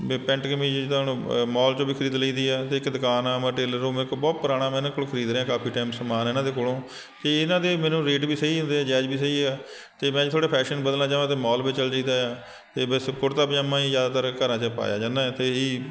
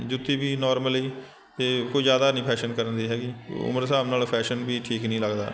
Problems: constant background noise